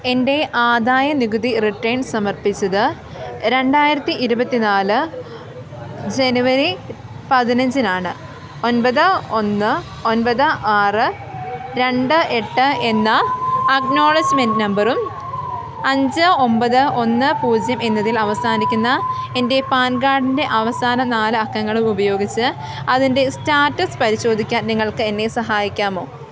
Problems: constant background noise